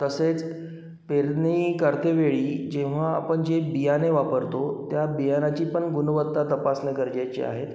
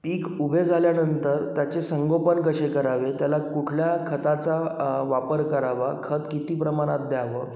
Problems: constant background noise, echo